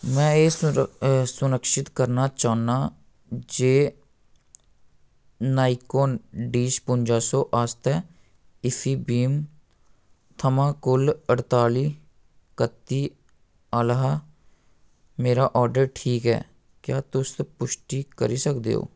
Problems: none marked